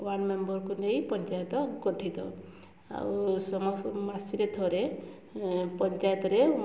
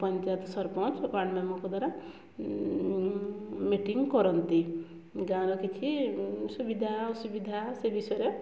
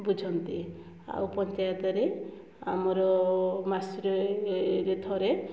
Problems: low volume